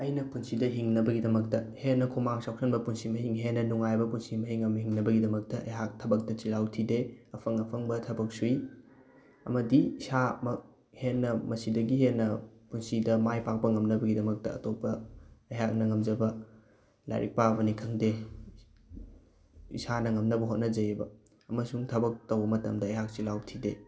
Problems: background sounds at intervals